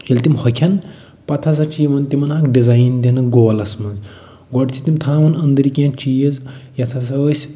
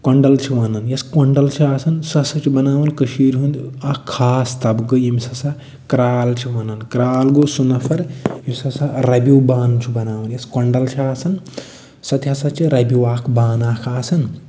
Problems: none marked